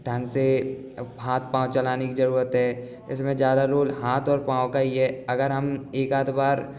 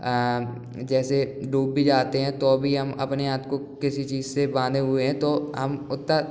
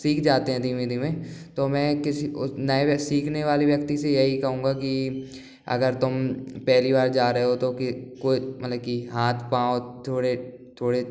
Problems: background sounds at intervals